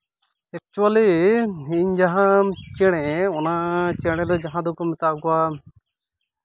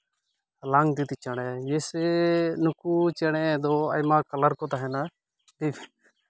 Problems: none marked